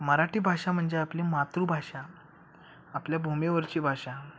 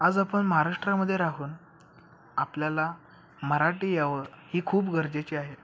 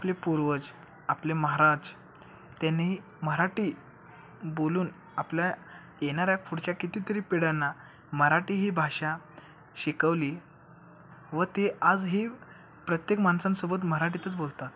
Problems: none marked